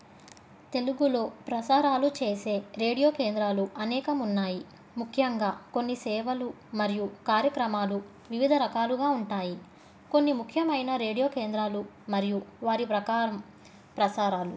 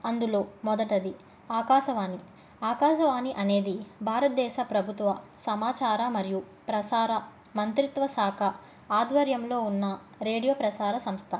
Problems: none marked